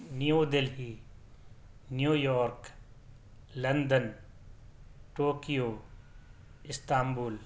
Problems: none marked